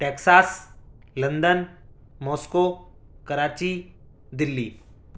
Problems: none marked